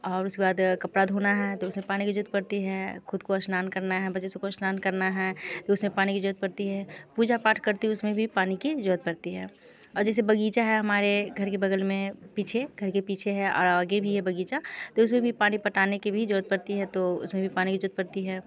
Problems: background conversations at intervals